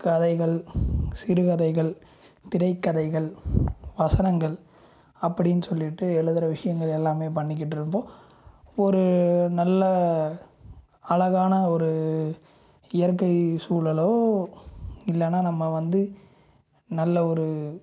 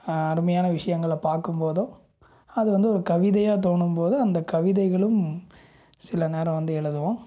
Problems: low volume